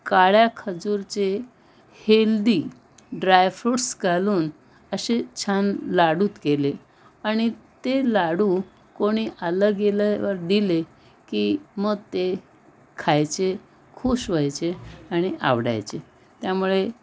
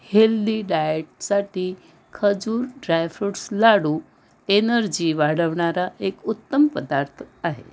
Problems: background sounds at intervals, background conversations at intervals